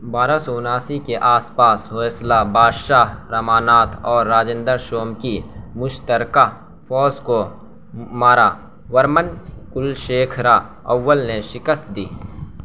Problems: constant background noise